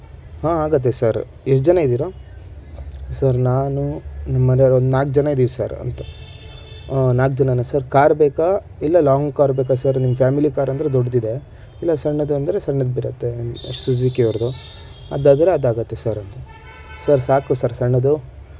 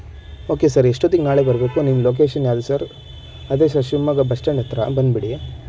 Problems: none marked